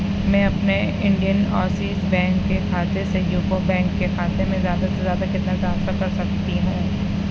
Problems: constant background noise, low volume